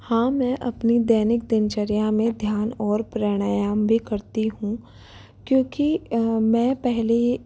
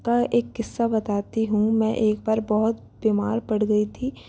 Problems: none marked